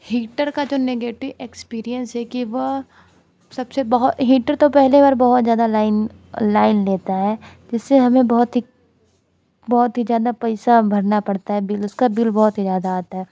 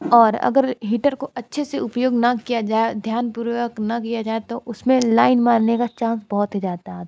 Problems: none marked